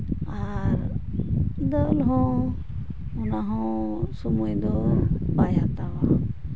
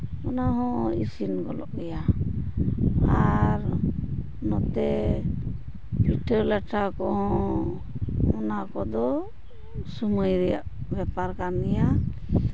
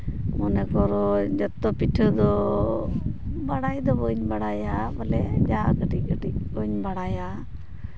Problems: none marked